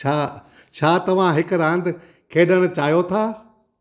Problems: none marked